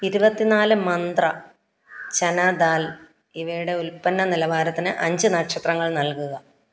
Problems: background sounds at intervals